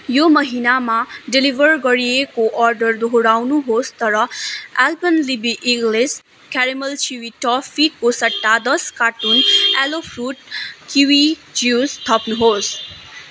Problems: constant background noise